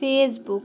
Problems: background sounds at intervals